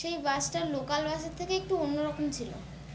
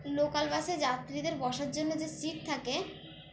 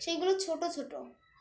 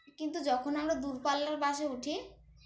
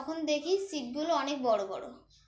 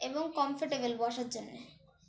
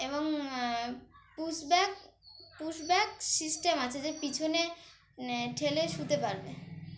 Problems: none marked